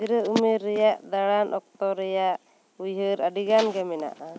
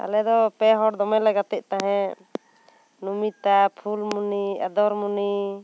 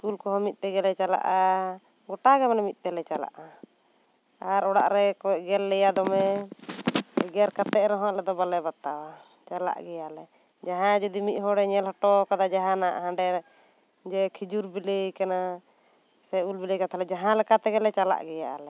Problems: constant background noise